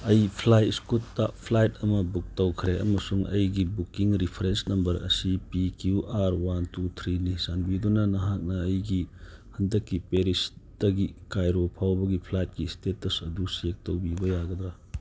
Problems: background sounds at intervals